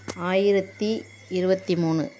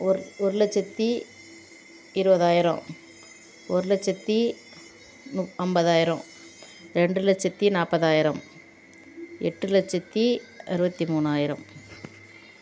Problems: constant background noise